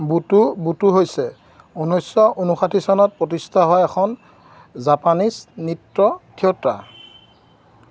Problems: constant background noise